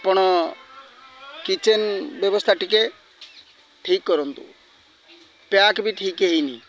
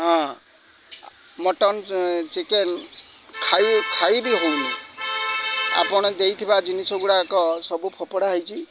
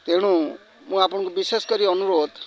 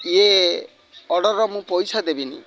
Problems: constant background noise, continuous background conversations